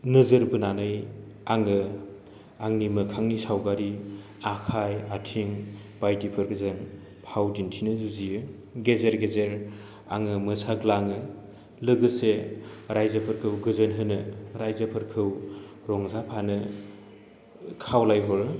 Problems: constant background noise